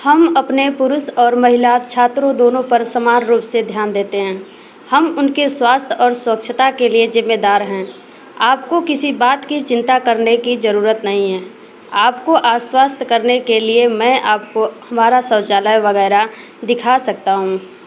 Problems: constant background noise